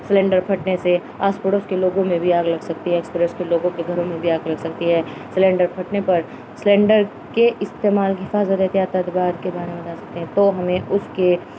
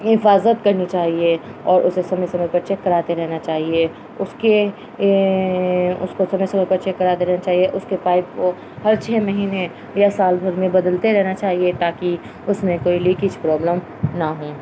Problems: constant background noise